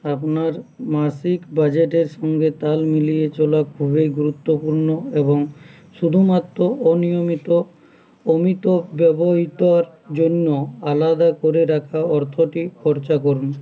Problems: none marked